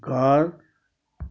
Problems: none marked